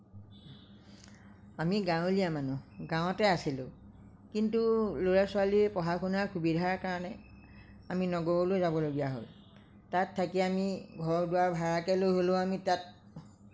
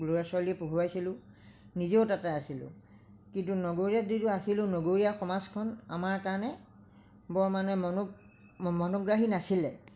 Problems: none marked